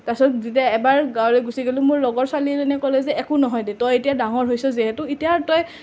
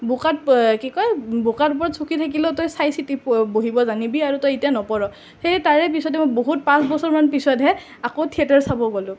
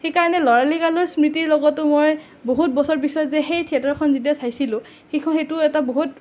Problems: none marked